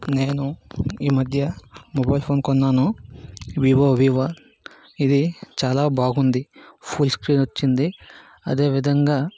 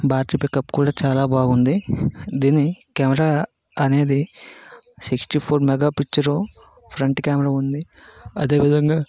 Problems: background sounds at intervals